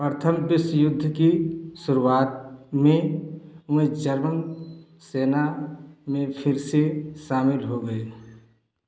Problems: echo